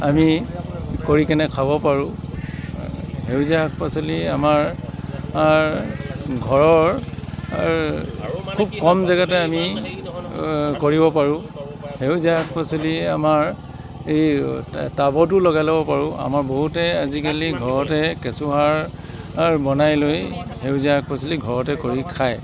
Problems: constant background noise